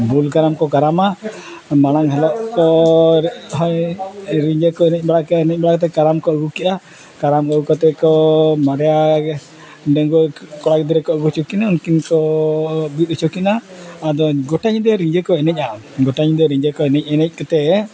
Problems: none marked